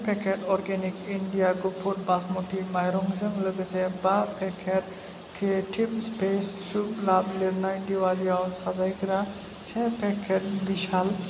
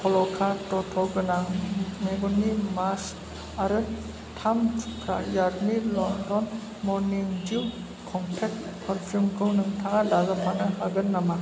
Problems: low volume